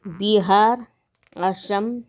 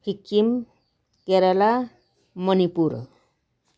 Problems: none marked